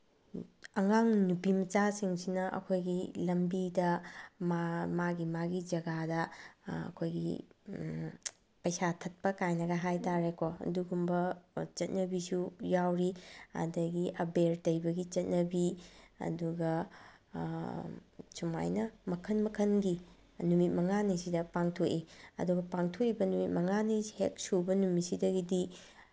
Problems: none marked